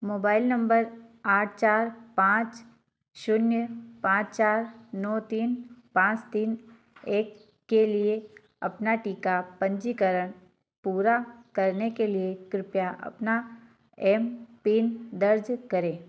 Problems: none marked